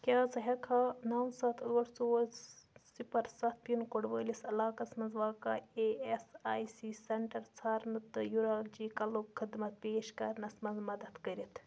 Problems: constant background noise